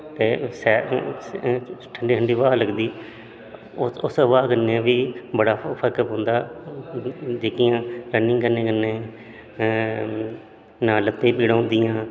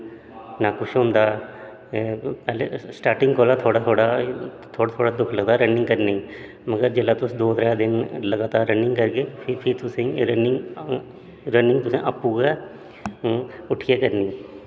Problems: background sounds at intervals, echo